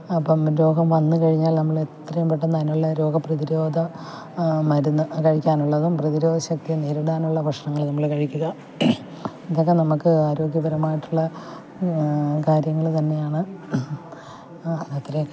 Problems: background sounds at intervals, low volume